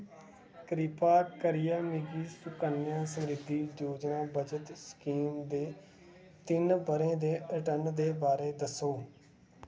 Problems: low volume